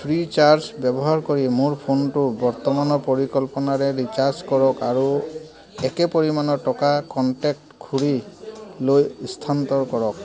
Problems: continuous background conversations